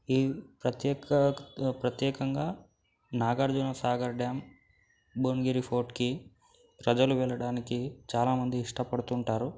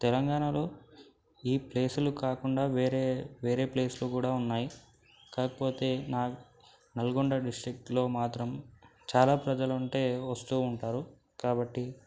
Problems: background sounds at intervals, low volume